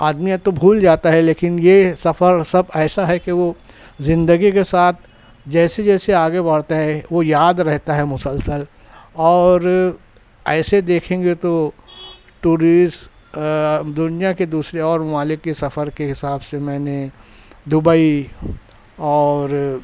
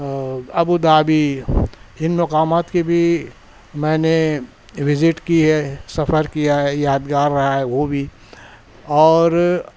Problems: none marked